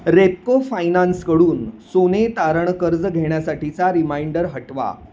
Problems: constant background noise